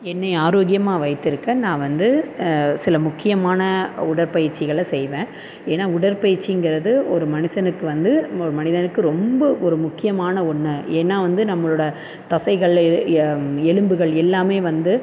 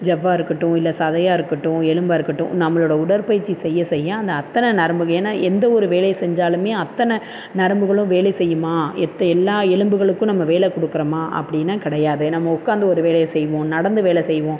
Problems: constant background noise